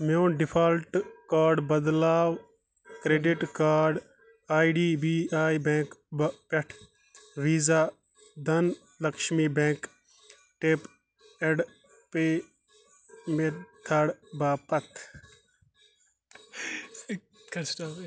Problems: constant background noise, background conversations at intervals